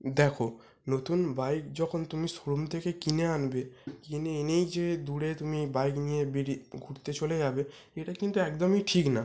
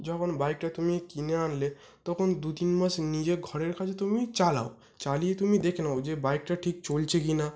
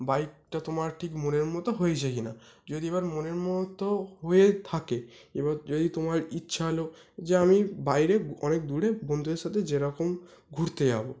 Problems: constant background noise